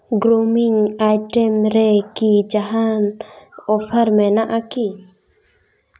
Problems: none marked